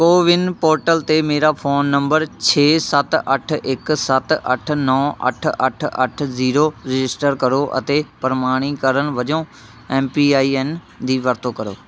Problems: constant background noise